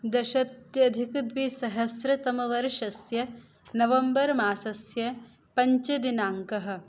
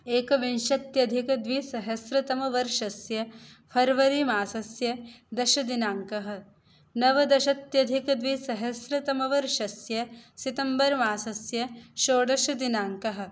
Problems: none marked